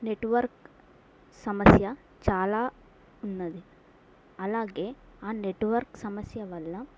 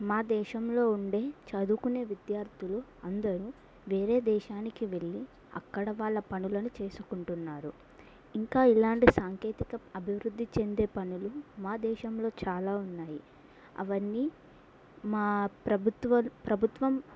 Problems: none marked